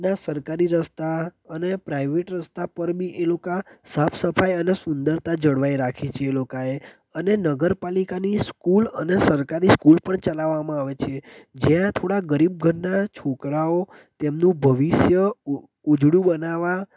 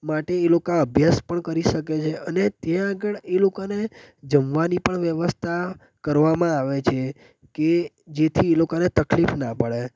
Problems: constant background noise